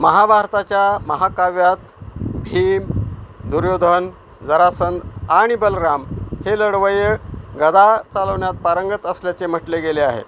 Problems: constant background noise